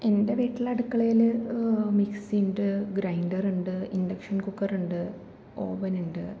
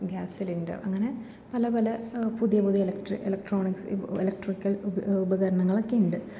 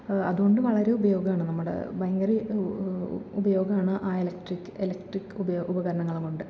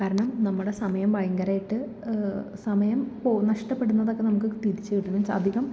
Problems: none marked